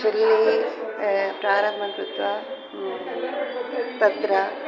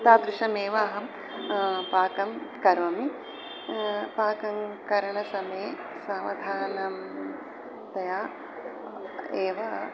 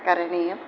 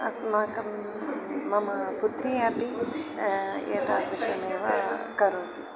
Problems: constant background noise, continuous background conversations